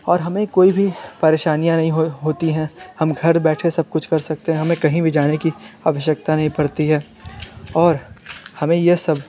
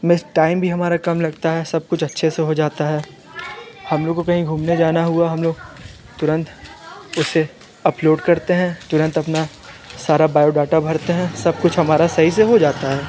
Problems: background conversations at intervals